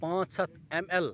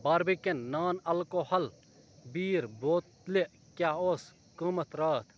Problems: constant background noise, background conversations at intervals